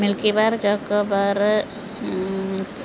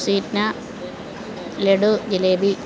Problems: none marked